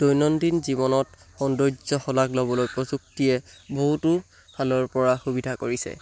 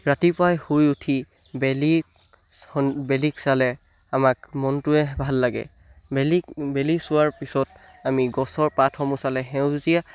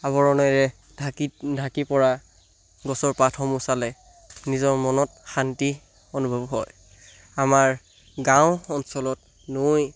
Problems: none marked